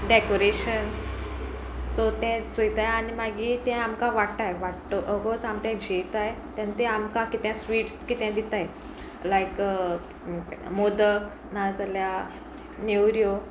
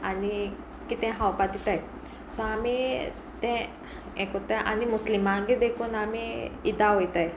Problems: none marked